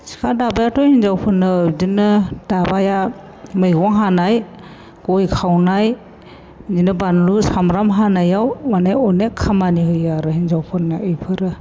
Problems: constant background noise